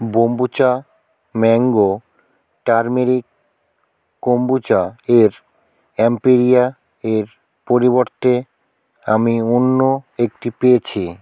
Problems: none marked